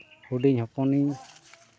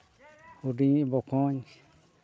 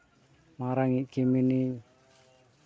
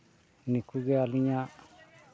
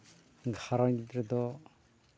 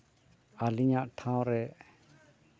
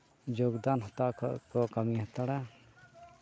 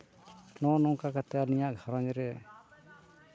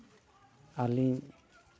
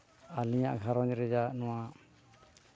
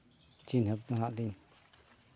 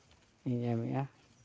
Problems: background sounds at intervals, background conversations at intervals